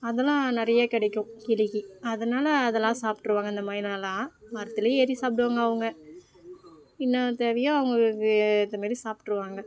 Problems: none marked